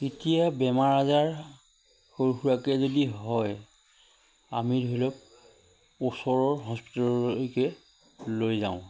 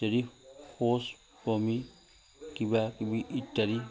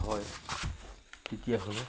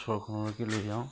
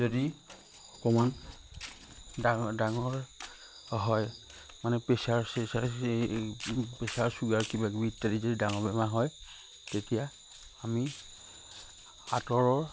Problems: constant background noise